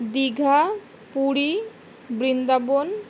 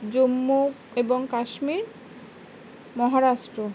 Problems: none marked